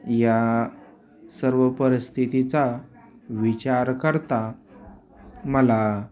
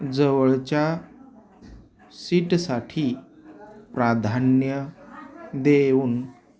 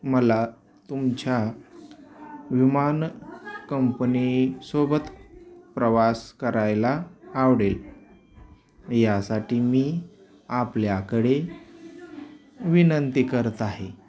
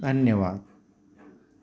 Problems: constant background noise, continuous background conversations